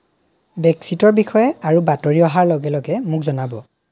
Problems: none marked